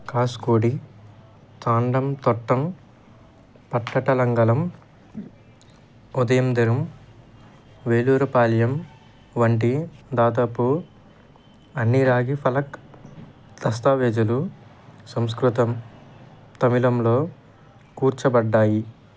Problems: background sounds at intervals